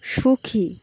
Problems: none marked